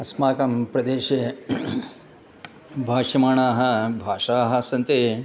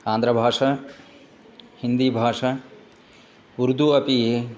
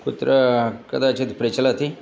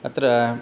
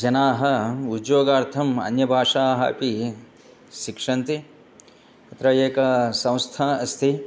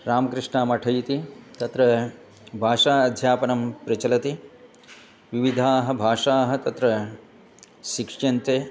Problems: continuous background conversations